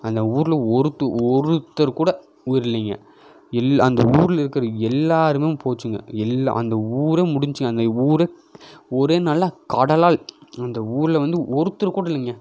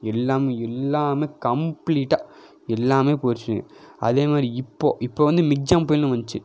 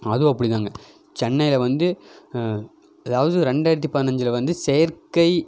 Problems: none marked